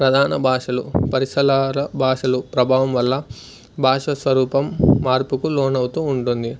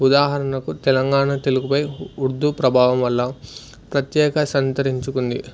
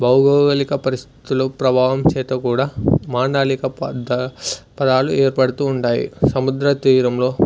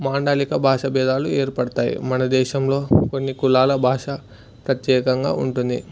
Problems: background sounds at intervals